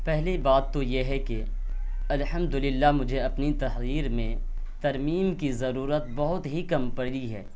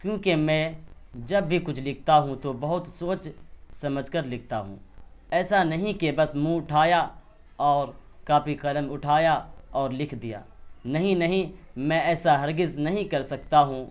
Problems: none marked